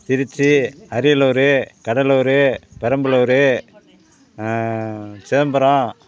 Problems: constant background noise